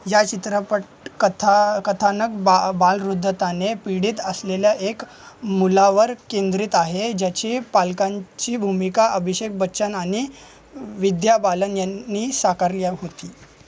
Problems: constant background noise, continuous background conversations